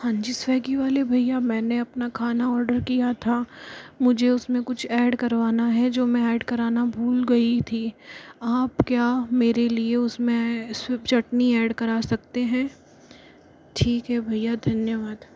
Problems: low volume